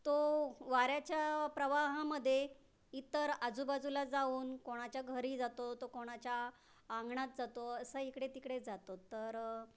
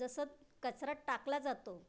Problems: constant background noise